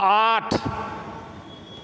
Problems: background sounds at intervals